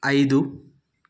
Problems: none marked